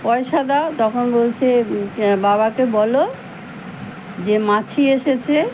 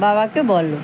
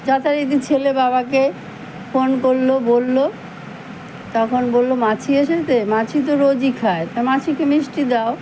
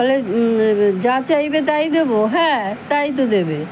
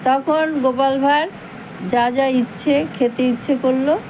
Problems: none marked